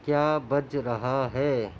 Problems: none marked